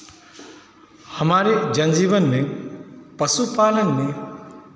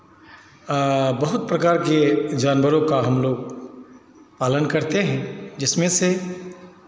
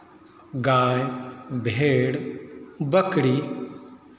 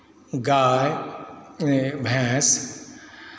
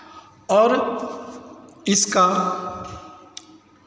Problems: constant background noise, echo